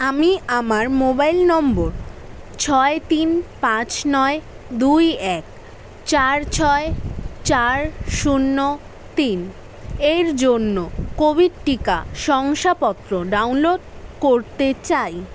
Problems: constant background noise